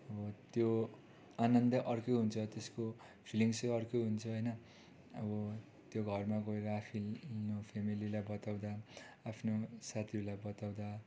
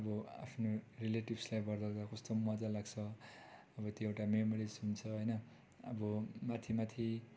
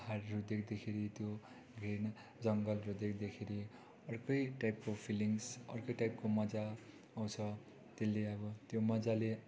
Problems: constant background noise